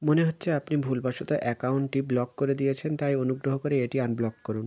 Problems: background sounds at intervals